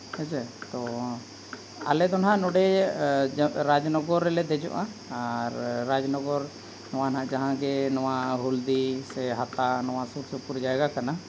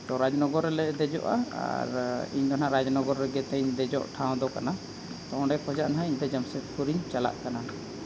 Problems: constant background noise